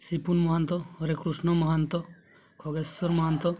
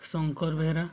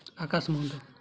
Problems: low volume